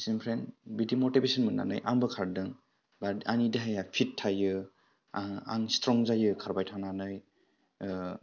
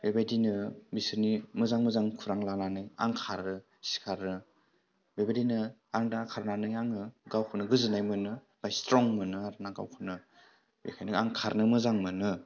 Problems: low volume